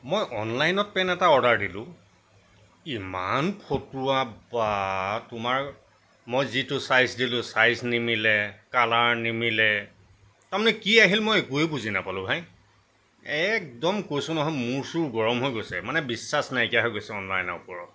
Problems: constant background noise